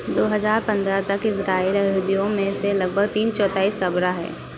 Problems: none marked